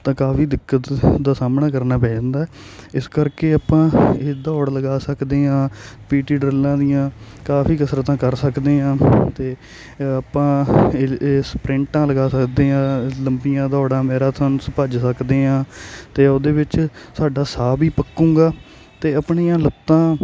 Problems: none marked